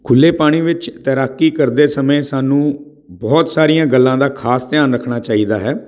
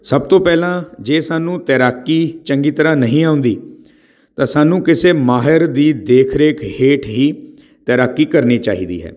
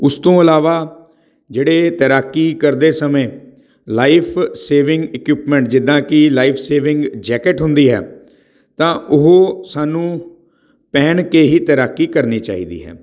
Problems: background sounds at intervals